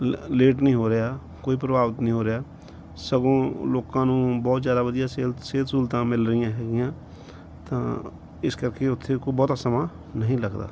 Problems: background sounds at intervals